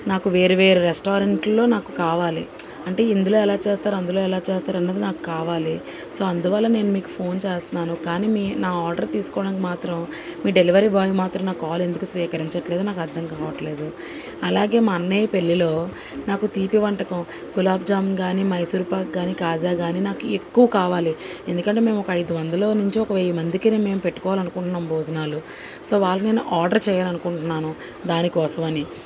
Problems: constant background noise